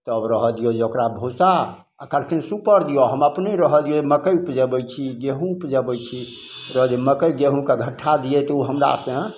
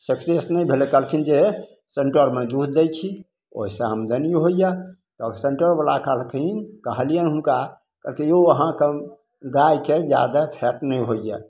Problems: none marked